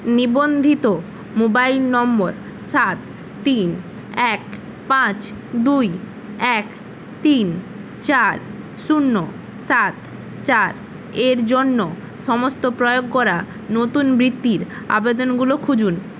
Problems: constant background noise